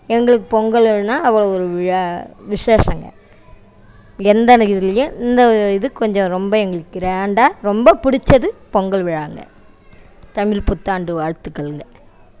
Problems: background sounds at intervals